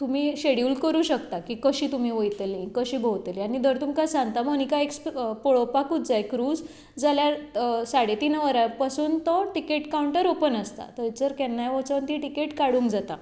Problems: background sounds at intervals